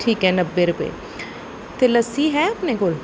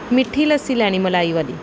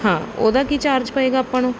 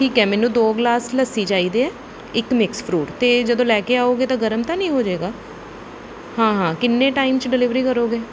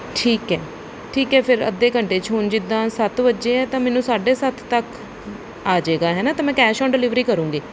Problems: background sounds at intervals